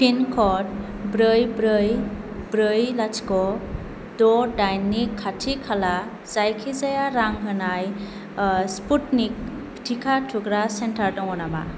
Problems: constant background noise